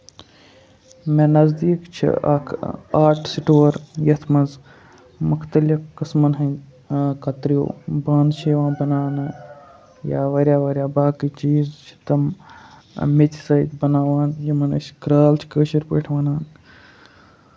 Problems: none marked